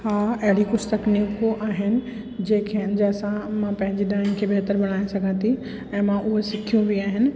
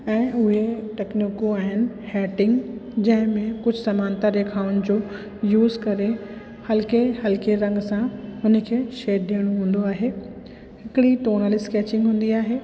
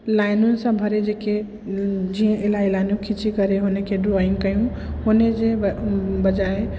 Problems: constant background noise, echo